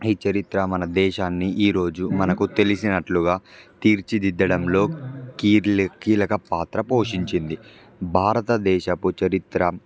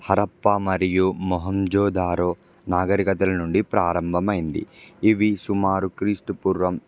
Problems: background sounds at intervals